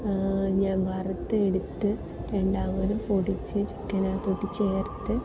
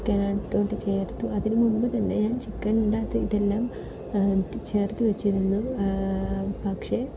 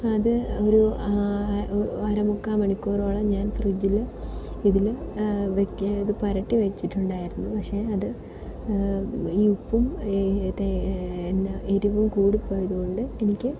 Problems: constant background noise